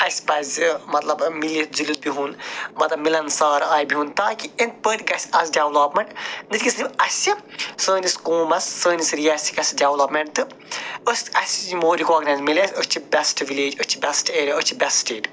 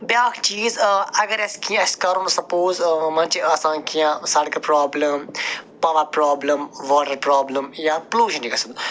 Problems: none marked